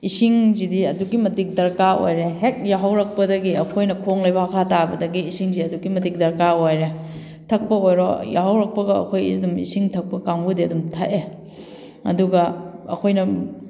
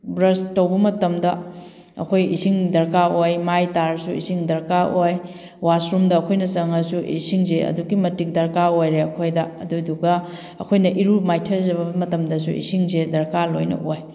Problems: none marked